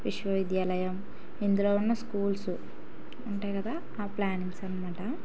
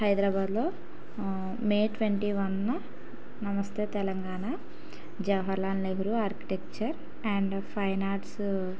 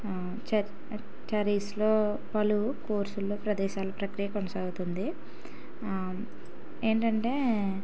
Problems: background sounds at intervals